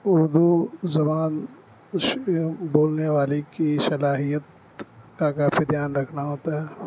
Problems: constant background noise